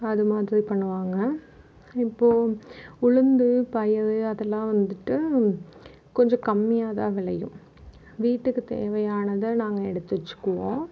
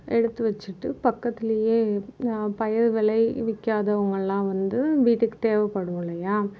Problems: none marked